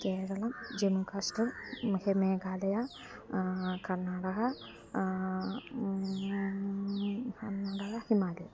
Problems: low volume